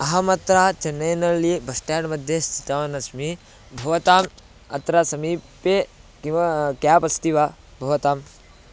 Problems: constant background noise